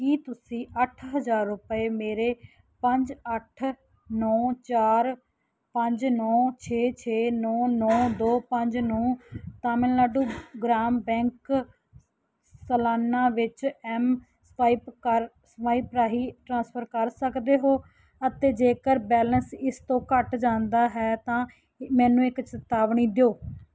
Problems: background sounds at intervals